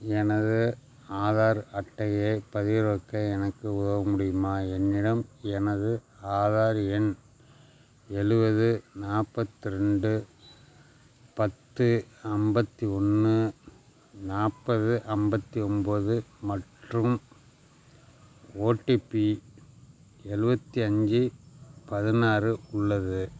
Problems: background sounds at intervals